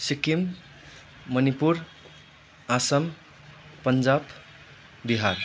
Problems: constant background noise